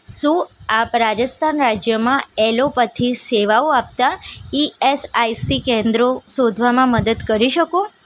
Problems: none marked